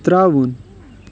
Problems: constant background noise